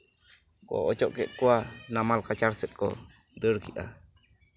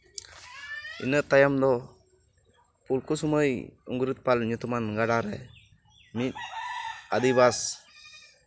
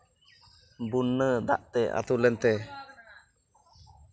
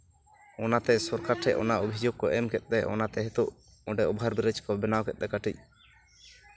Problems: background sounds at intervals